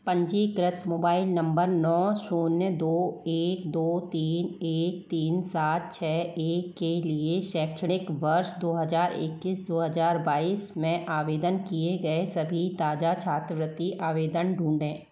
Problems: none marked